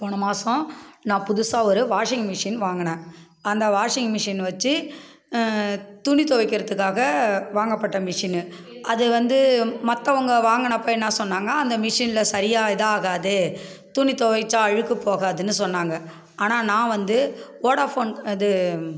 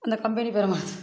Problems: background conversations at intervals